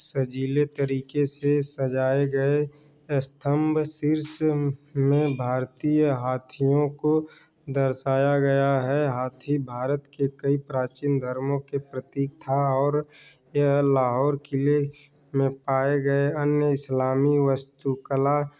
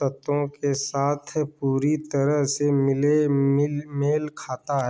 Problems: none marked